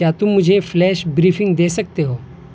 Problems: constant background noise